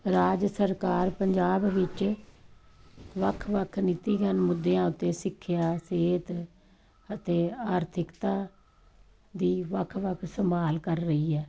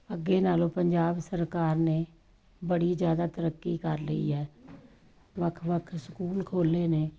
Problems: none marked